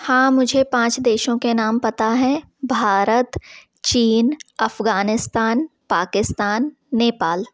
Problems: constant background noise